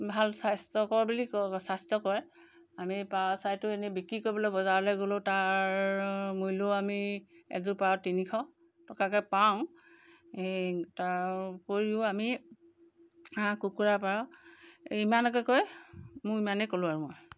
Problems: none marked